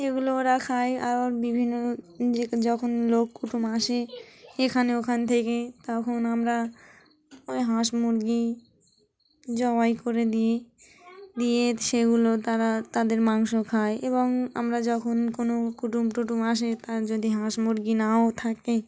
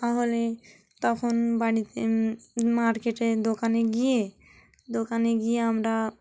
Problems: background sounds at intervals, continuous background conversations